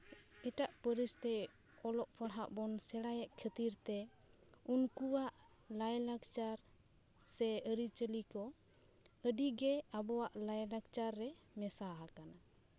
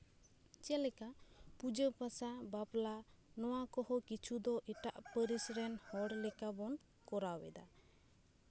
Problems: none marked